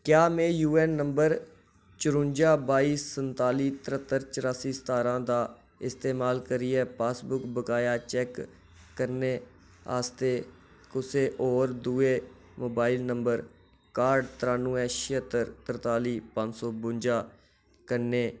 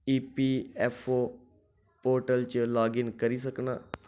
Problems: none marked